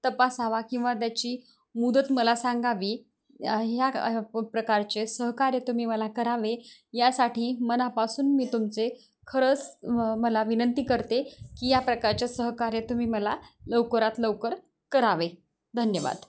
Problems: none marked